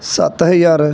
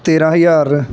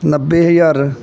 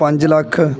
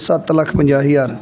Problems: background sounds at intervals, background conversations at intervals